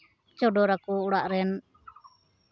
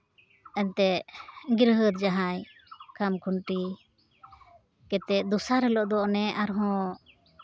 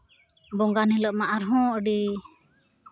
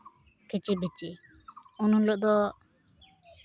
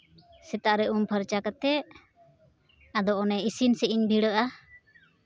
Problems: constant background noise, background conversations at intervals